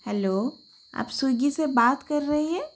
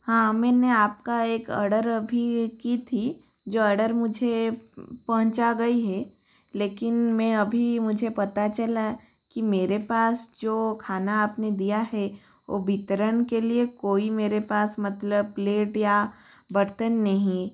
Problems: constant background noise